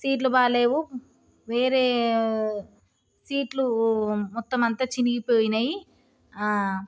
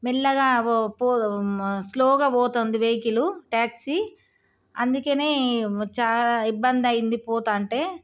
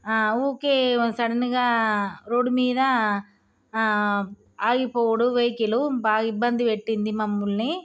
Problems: none marked